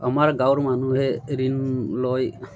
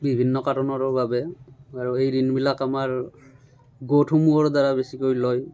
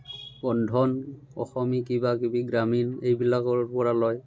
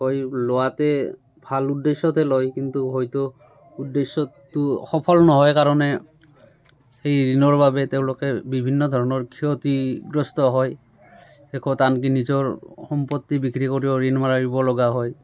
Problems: constant background noise, continuous background conversations